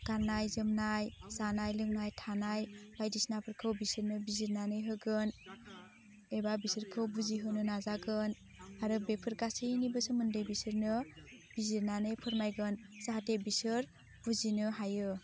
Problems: constant background noise